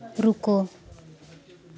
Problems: none marked